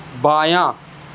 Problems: none marked